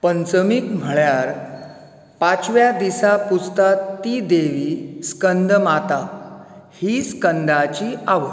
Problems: none marked